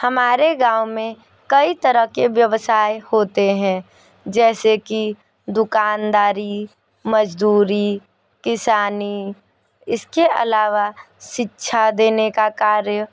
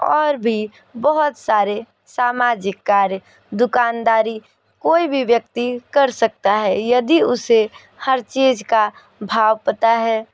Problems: background sounds at intervals